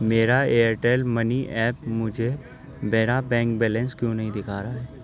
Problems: constant background noise